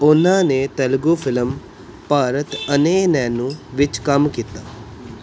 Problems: background sounds at intervals